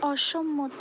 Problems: constant background noise